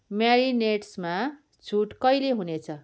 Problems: none marked